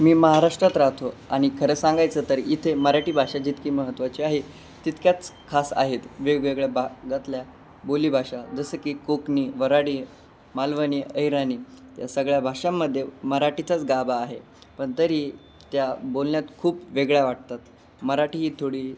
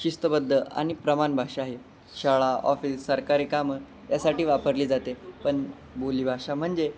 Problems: none marked